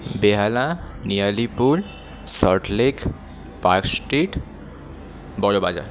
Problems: constant background noise